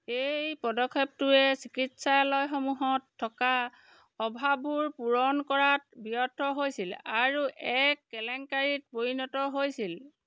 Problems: background sounds at intervals